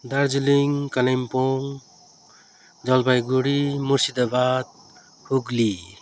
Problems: constant background noise